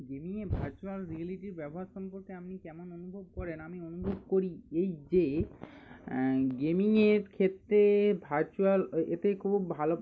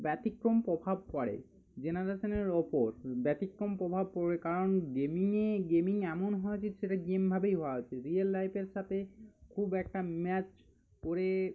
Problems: none marked